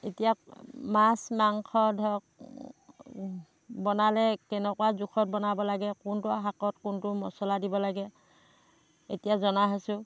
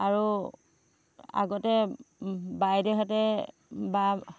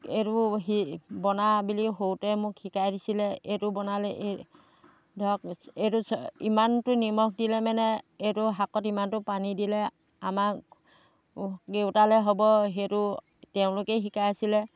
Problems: none marked